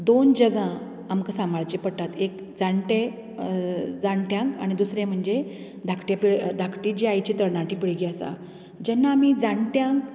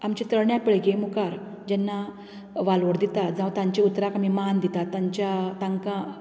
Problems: none marked